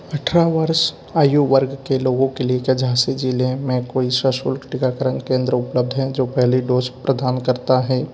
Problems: none marked